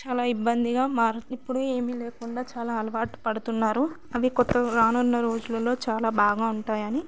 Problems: none marked